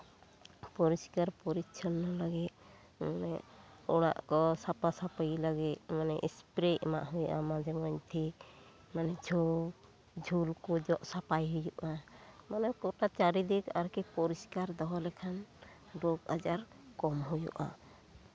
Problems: constant background noise, continuous background conversations